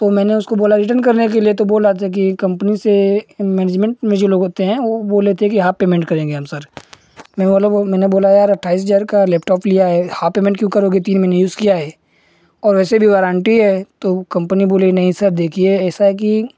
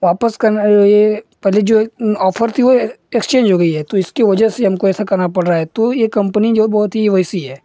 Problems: none marked